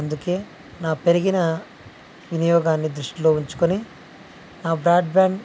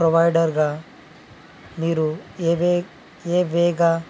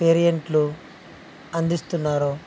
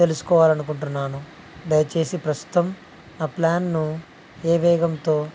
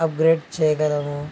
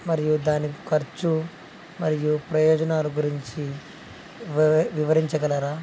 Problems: constant background noise